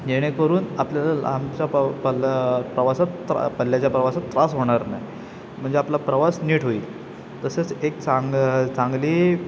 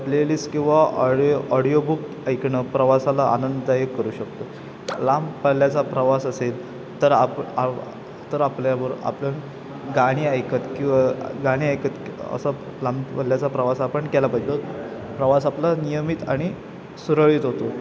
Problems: constant background noise